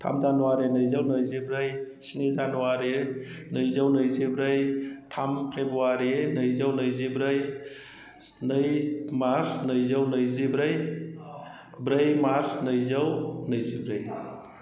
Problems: none marked